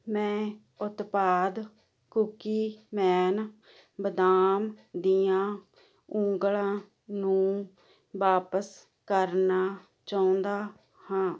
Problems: constant background noise